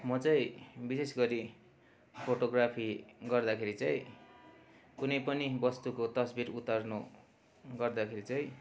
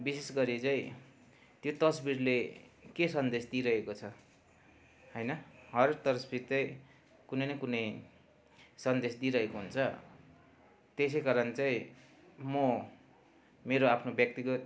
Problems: constant background noise